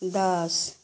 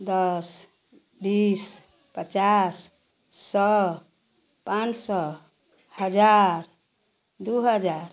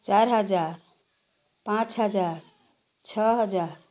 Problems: none marked